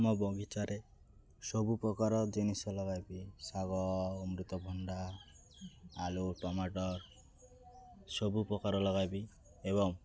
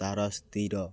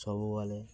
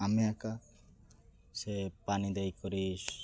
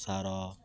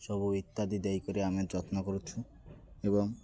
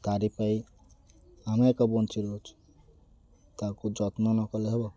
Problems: constant background noise